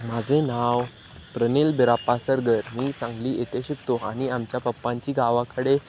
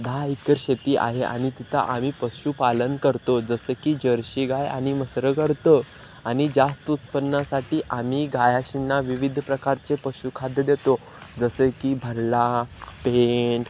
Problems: constant background noise